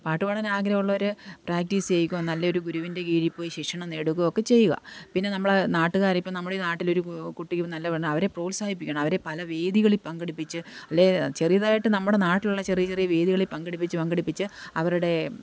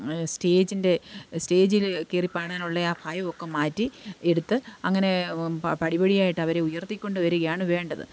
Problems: none marked